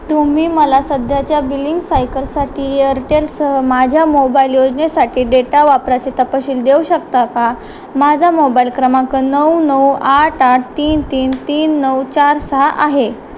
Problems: constant background noise